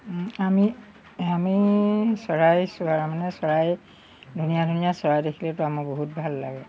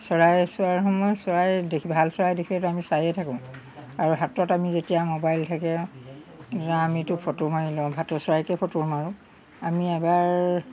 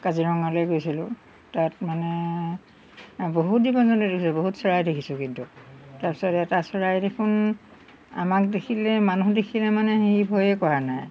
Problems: background sounds at intervals